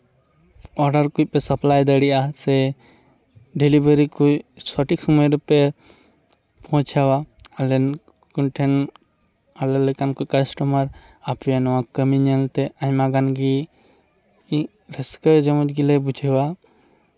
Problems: none marked